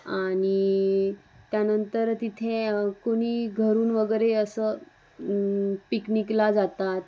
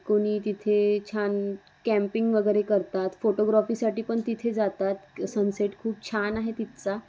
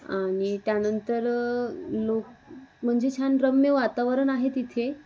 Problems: constant background noise